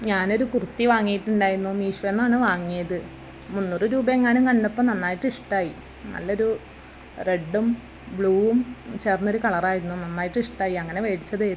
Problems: constant background noise, background conversations at intervals